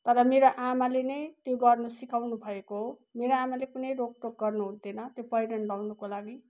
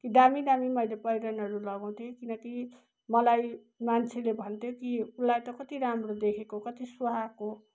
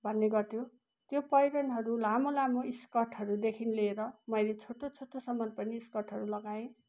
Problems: none marked